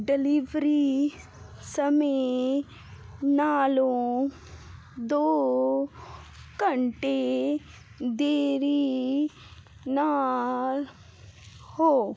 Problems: constant background noise